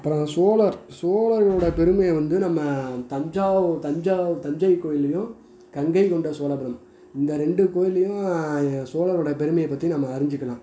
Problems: background sounds at intervals